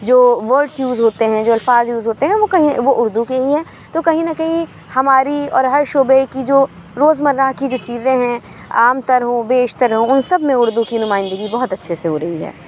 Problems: none marked